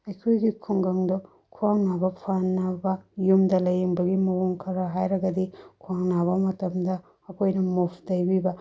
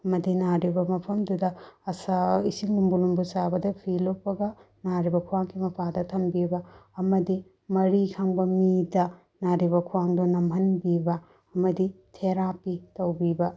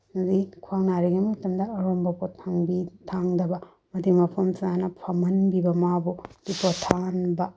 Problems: low volume